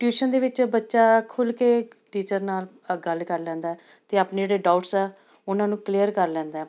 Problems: none marked